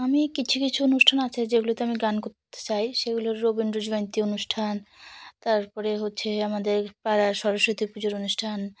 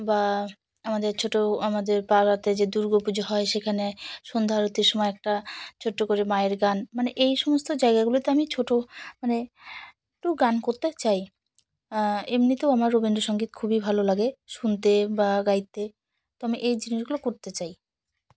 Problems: none marked